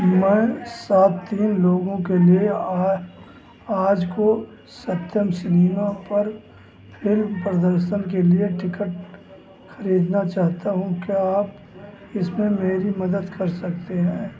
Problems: constant background noise, background conversations at intervals